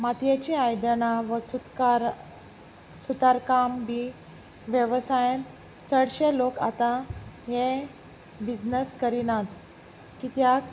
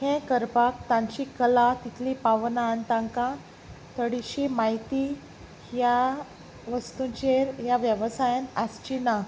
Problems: constant background noise